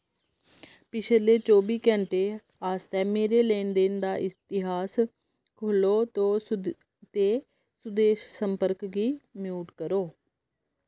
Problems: none marked